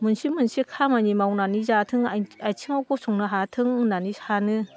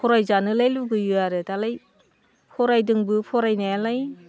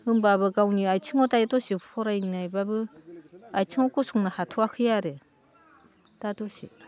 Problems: constant background noise